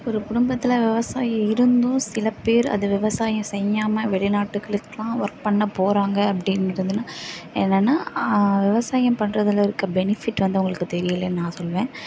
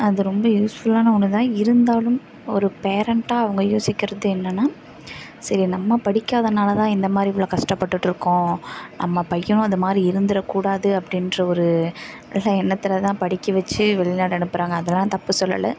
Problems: constant background noise